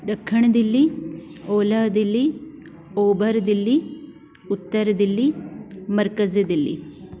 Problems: constant background noise